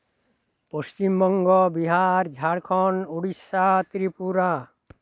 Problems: none marked